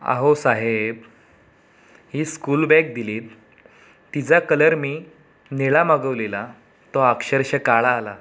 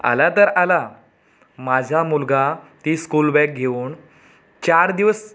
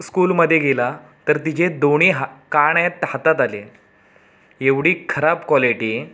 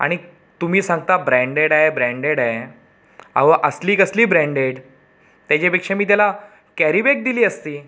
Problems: none marked